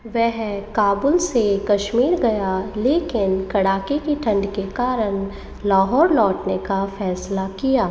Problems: constant background noise, echo